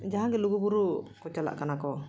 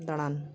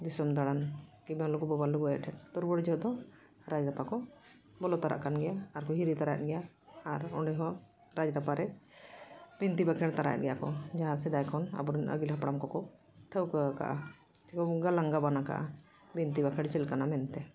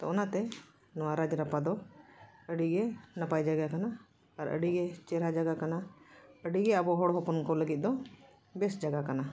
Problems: none marked